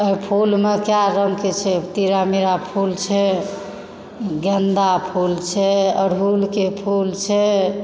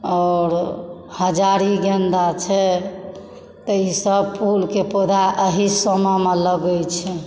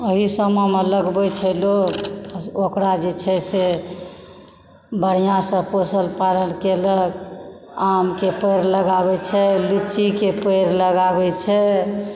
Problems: background sounds at intervals